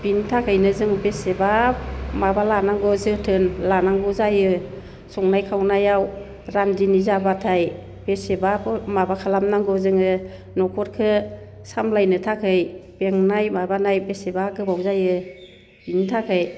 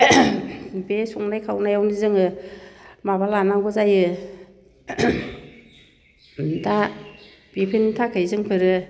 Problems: none marked